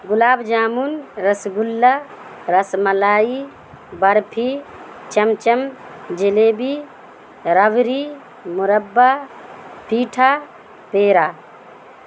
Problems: constant background noise